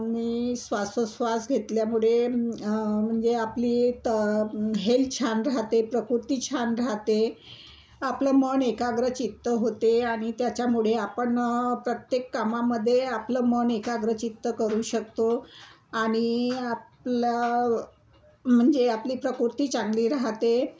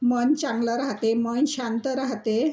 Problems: none marked